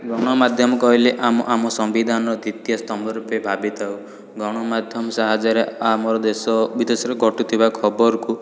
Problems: constant background noise, continuous background conversations